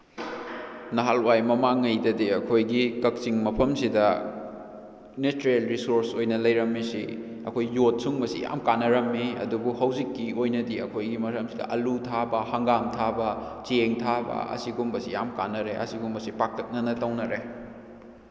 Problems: background sounds at intervals